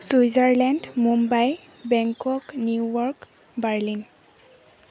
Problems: background sounds at intervals